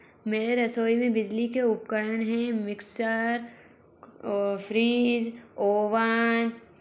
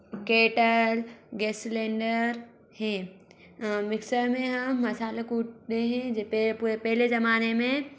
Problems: background sounds at intervals